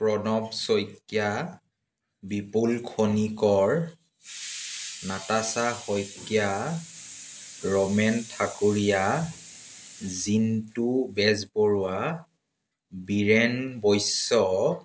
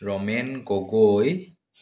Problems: background sounds at intervals